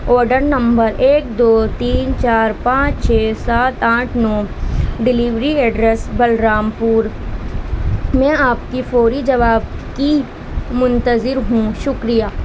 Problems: constant background noise